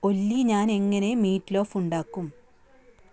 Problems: none marked